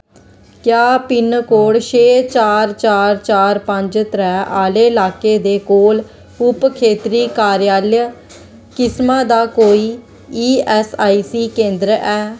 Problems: none marked